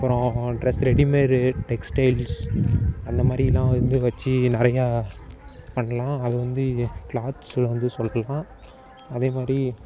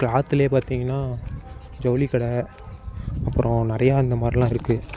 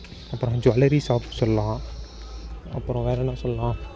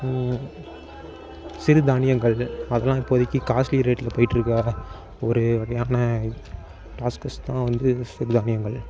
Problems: constant background noise